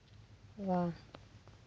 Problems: background sounds at intervals